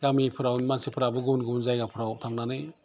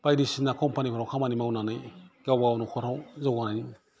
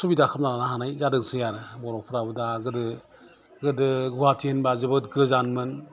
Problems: constant background noise